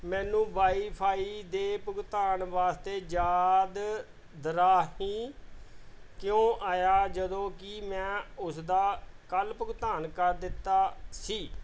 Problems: background sounds at intervals